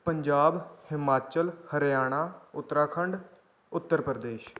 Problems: background sounds at intervals